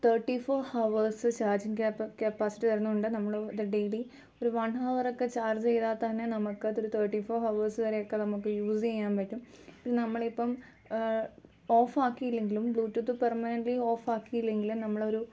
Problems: low volume